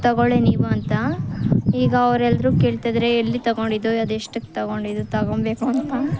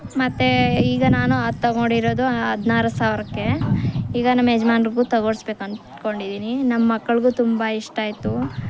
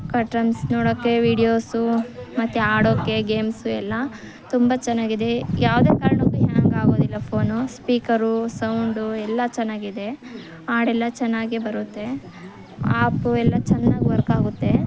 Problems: none marked